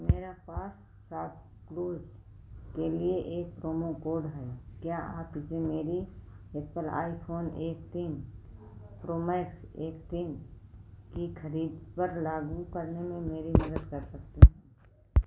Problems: low volume